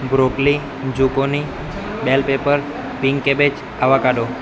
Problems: constant background noise